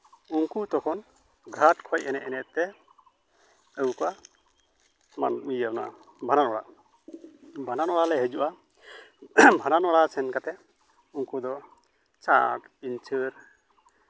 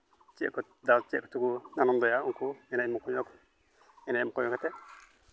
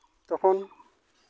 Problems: none marked